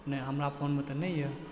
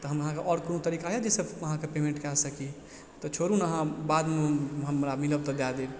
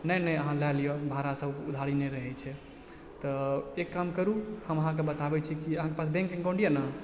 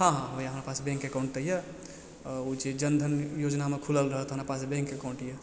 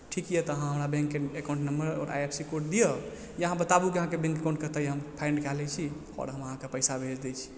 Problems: background sounds at intervals